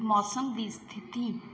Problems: background sounds at intervals